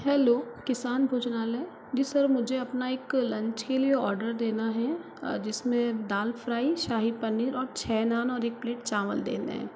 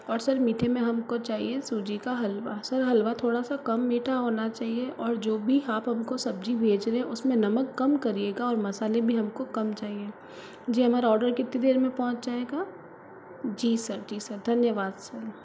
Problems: constant background noise